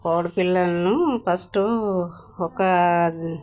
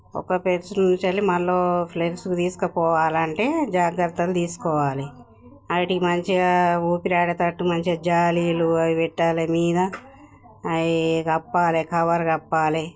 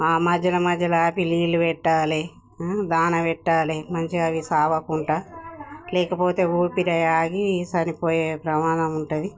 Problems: none marked